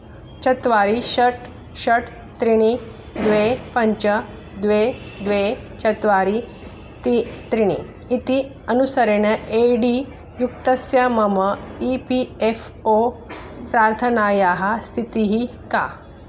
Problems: constant background noise